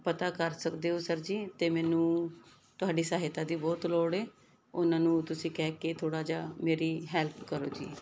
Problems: background sounds at intervals